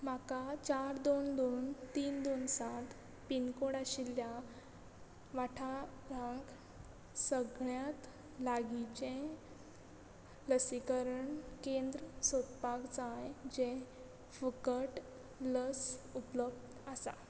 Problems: constant background noise